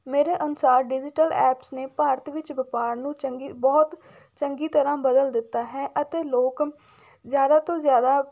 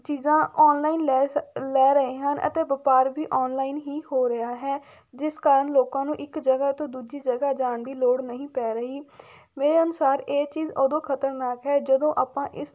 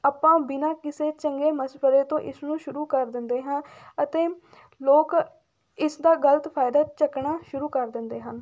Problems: none marked